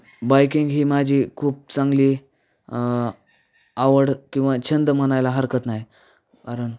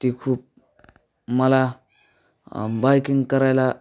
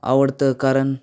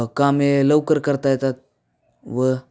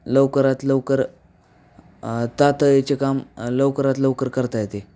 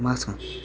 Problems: none marked